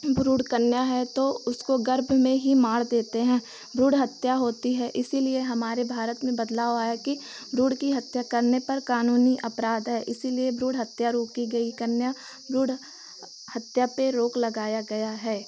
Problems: none marked